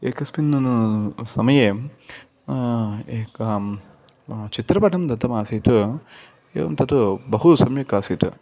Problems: none marked